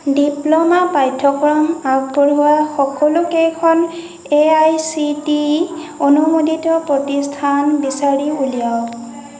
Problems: none marked